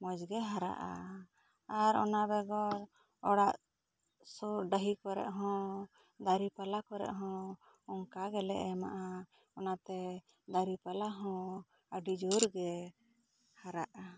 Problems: low volume